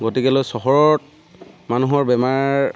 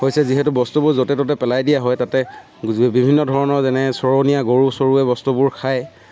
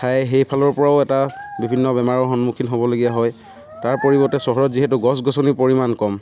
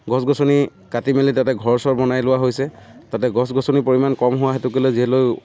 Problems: none marked